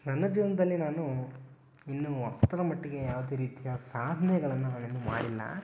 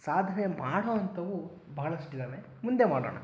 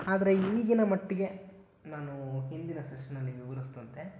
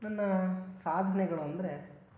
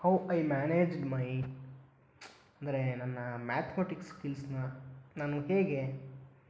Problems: background sounds at intervals